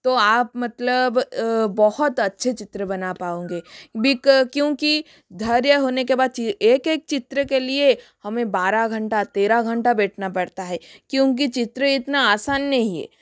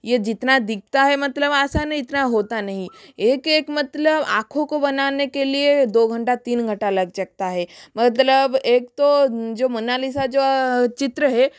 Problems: background sounds at intervals